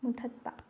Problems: low volume